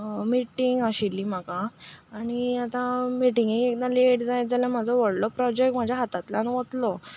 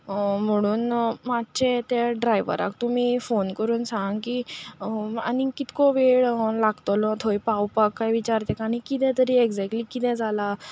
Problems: constant background noise, background conversations at intervals